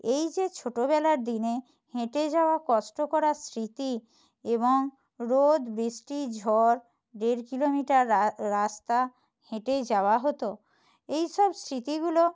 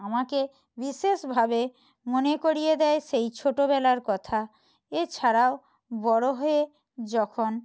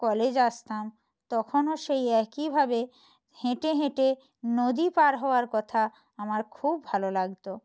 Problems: none marked